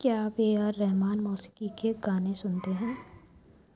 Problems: low volume